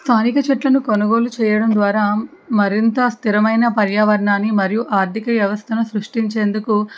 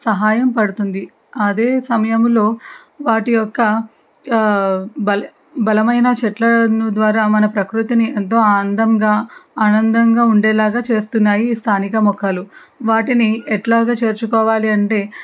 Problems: background conversations at intervals